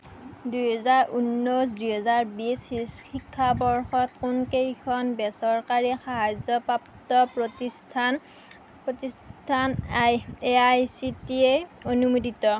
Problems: none marked